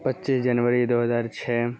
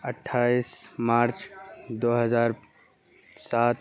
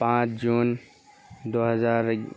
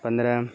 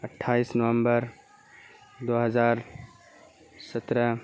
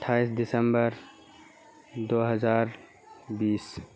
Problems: background sounds at intervals, low volume